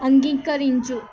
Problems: constant background noise